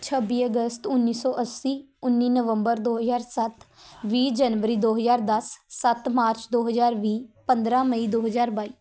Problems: background sounds at intervals